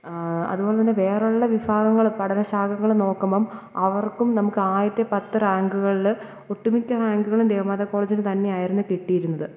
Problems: background sounds at intervals